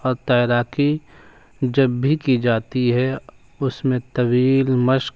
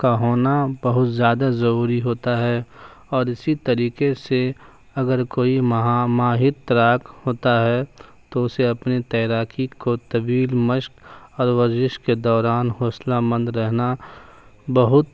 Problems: constant background noise